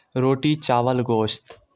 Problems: constant background noise